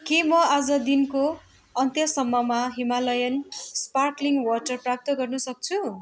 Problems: constant background noise